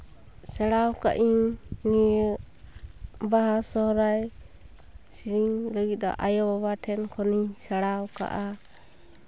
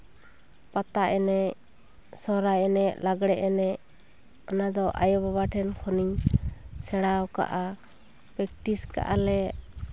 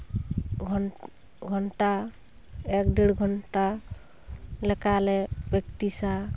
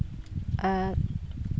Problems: constant background noise